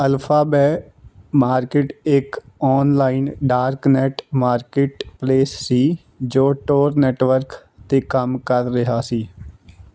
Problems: background sounds at intervals